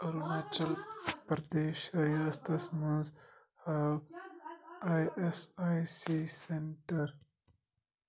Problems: continuous background conversations